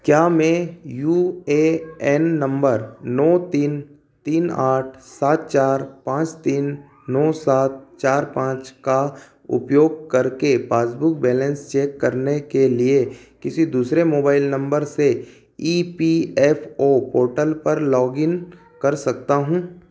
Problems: constant background noise